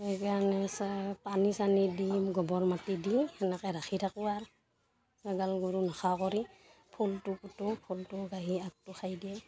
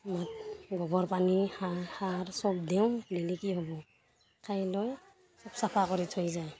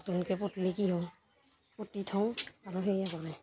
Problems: constant background noise